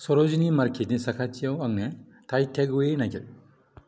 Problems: low volume